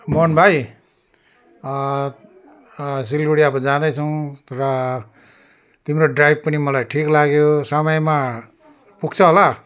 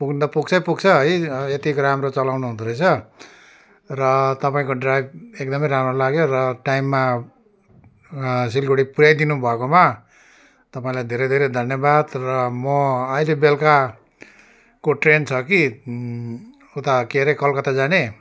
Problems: constant background noise